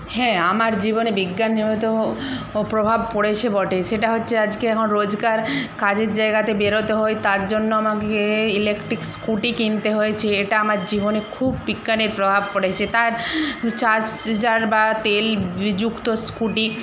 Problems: constant background noise